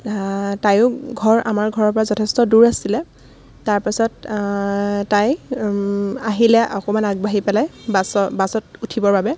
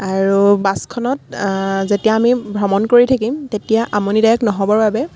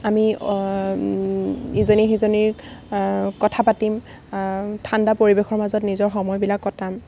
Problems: none marked